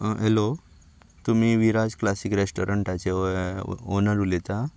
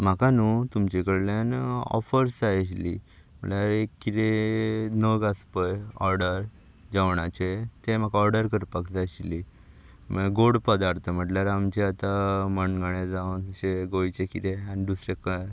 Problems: none marked